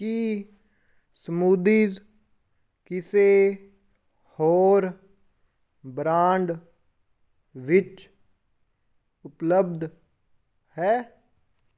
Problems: none marked